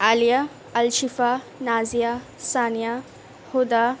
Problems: constant background noise